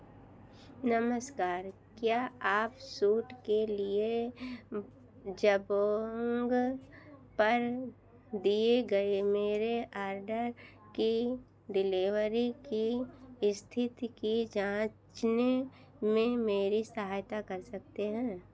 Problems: none marked